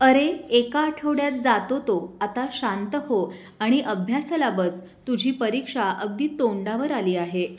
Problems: constant background noise